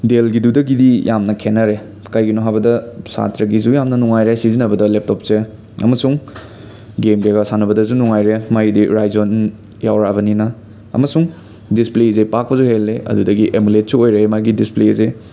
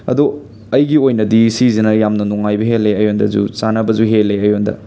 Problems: constant background noise, background conversations at intervals